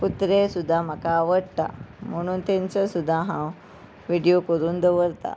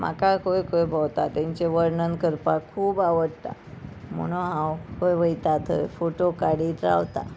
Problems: none marked